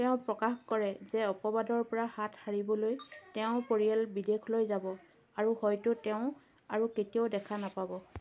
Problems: none marked